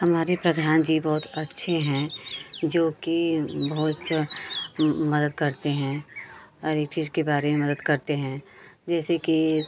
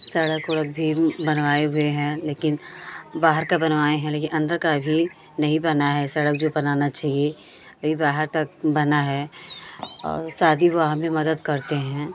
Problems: constant background noise, continuous background conversations